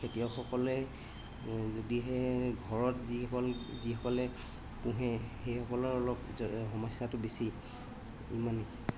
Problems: constant background noise